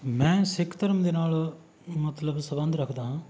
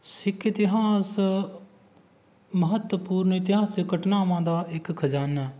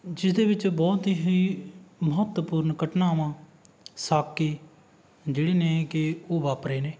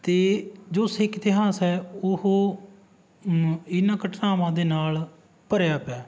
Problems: background sounds at intervals